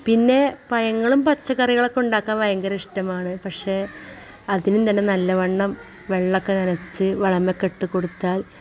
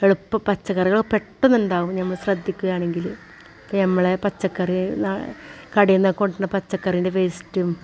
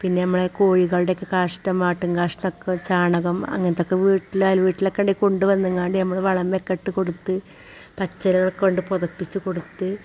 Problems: constant background noise